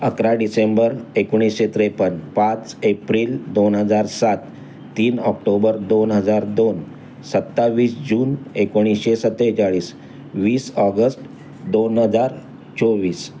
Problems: constant background noise